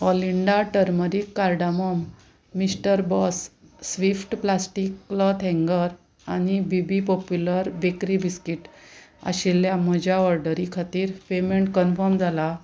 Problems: background conversations at intervals